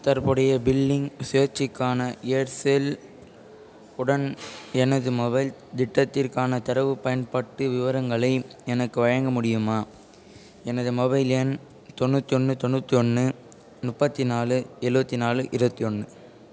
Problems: constant background noise, background conversations at intervals